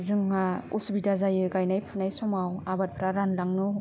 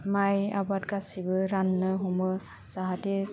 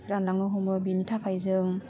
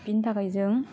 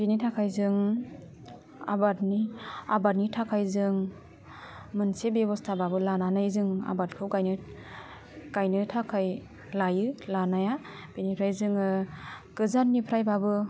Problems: low volume